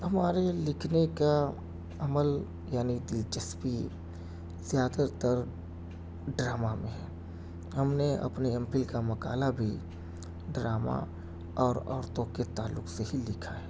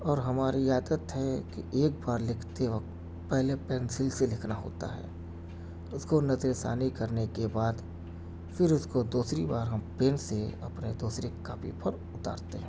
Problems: background sounds at intervals, low volume